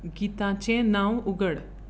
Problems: constant background noise